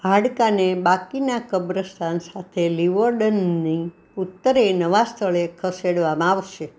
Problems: none marked